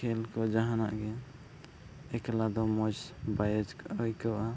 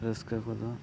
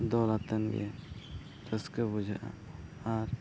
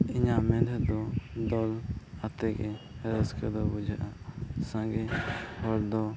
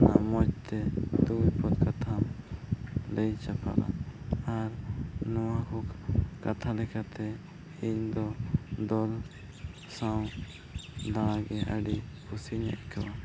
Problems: background sounds at intervals, low volume